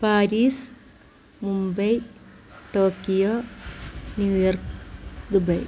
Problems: constant background noise